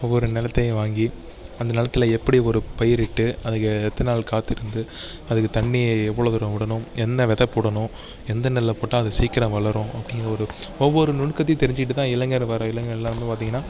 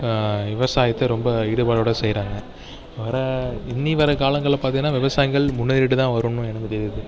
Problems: background sounds at intervals